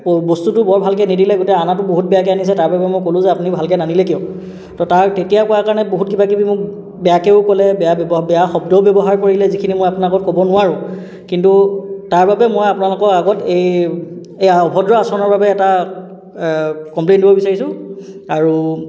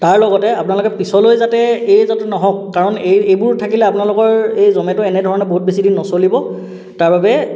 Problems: none marked